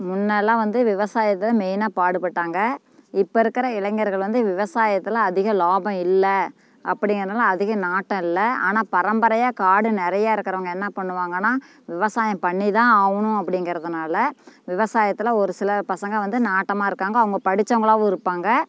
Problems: none marked